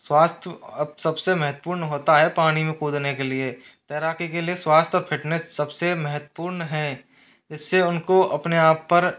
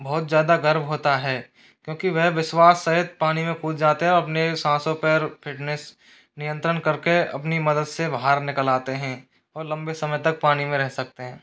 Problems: background sounds at intervals